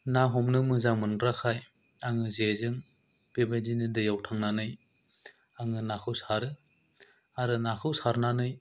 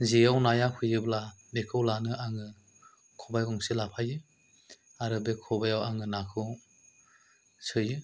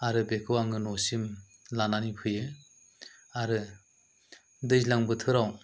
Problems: low volume